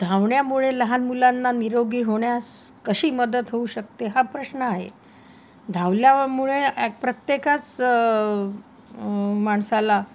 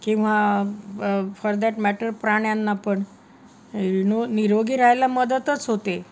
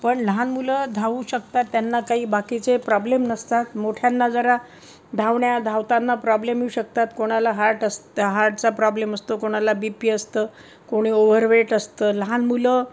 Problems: constant background noise